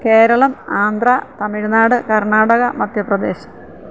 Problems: none marked